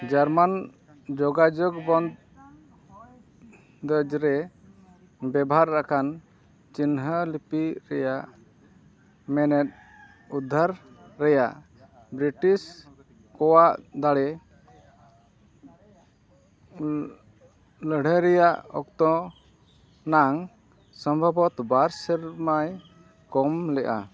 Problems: background sounds at intervals